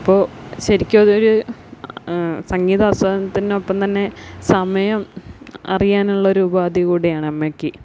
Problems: none marked